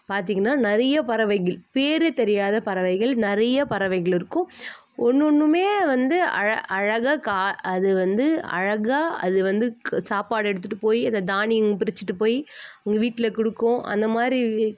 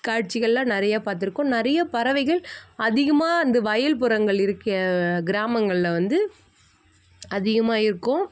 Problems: none marked